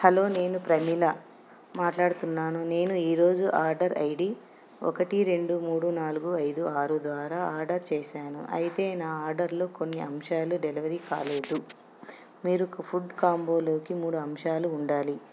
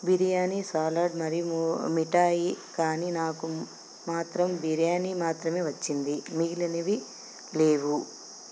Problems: none marked